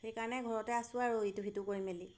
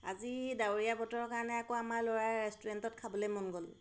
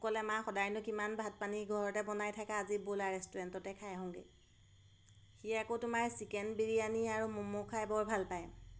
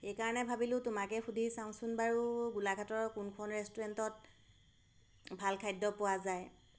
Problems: none marked